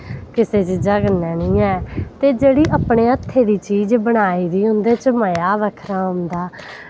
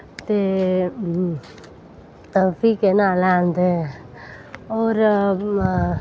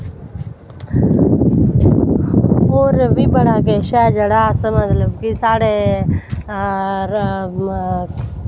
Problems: background sounds at intervals